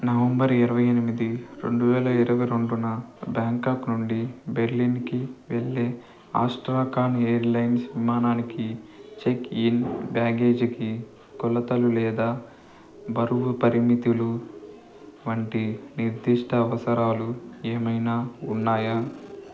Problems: none marked